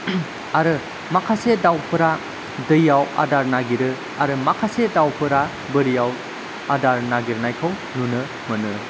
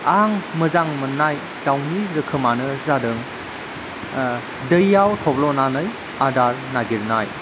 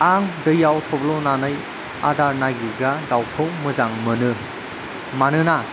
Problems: constant background noise